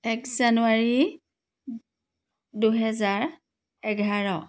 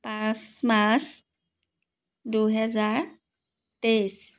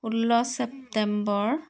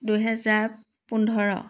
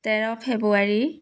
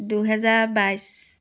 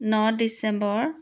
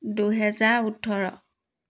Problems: none marked